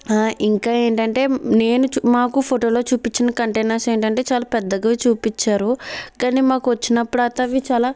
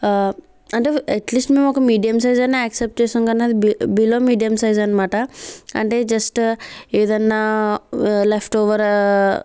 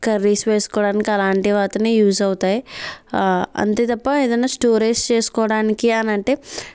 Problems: background sounds at intervals